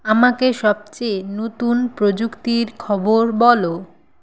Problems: constant background noise